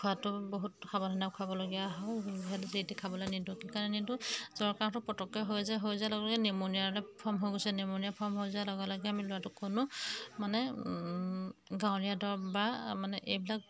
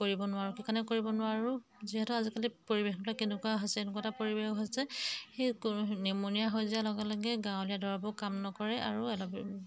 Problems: background sounds at intervals